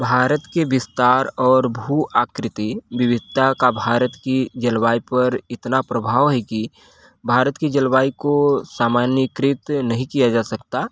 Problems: constant background noise